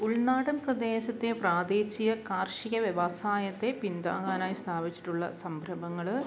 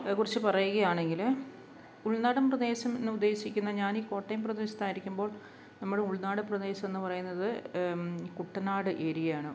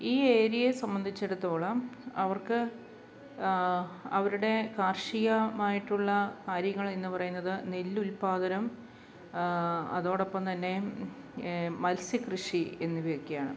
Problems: low volume